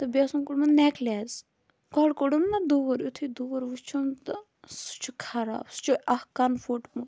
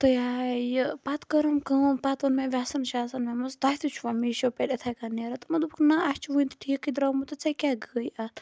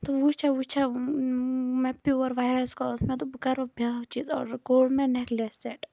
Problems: constant background noise